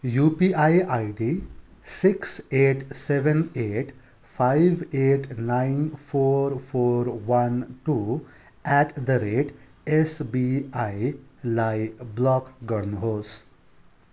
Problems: none marked